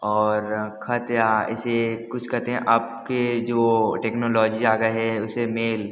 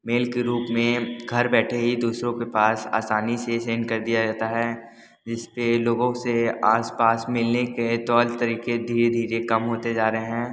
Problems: constant background noise, background conversations at intervals